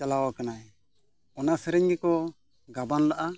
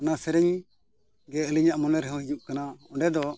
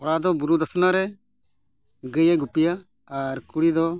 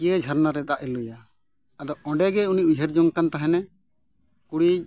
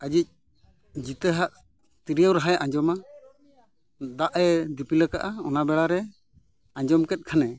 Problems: none marked